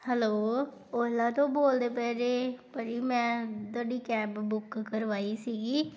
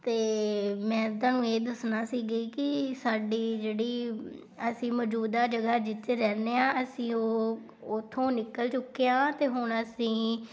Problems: background sounds at intervals